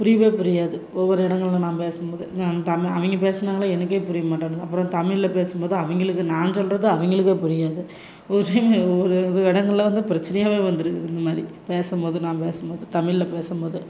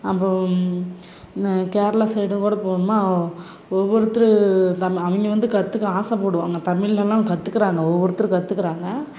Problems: constant background noise